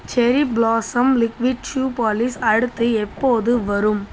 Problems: constant background noise